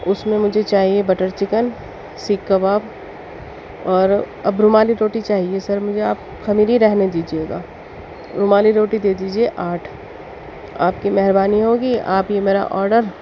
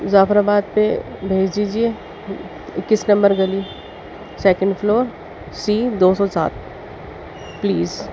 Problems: constant background noise